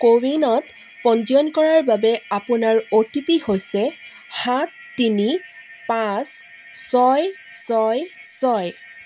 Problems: constant background noise